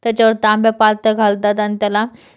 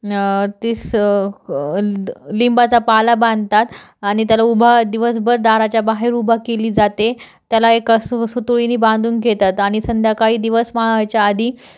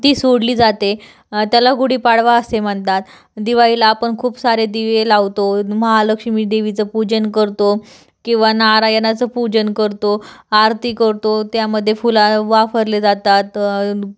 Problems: none marked